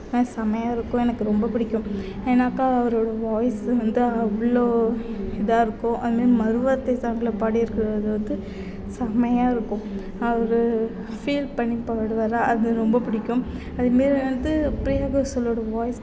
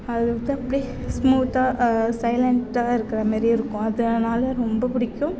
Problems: background sounds at intervals